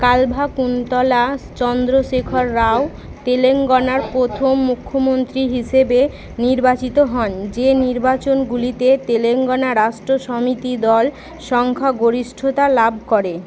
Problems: none marked